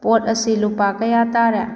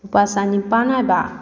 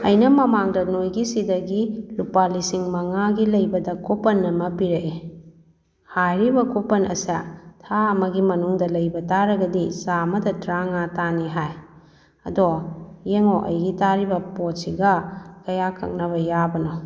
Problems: background conversations at intervals